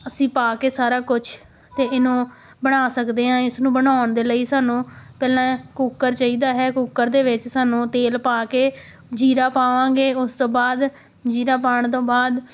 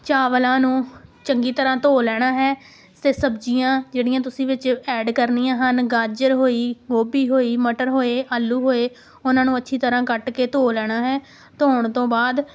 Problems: background sounds at intervals